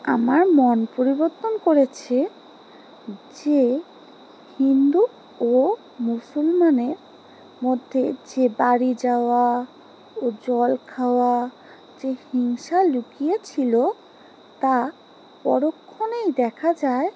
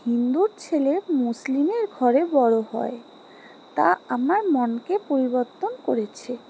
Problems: background sounds at intervals